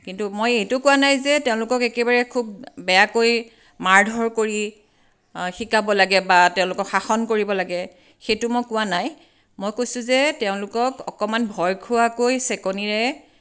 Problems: none marked